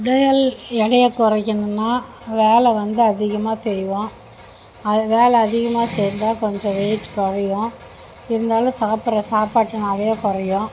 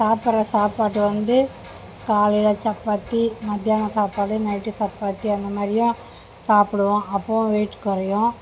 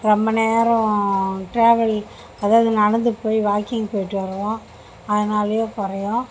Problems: constant background noise